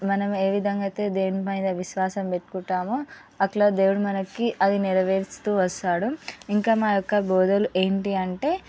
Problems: background sounds at intervals, background conversations at intervals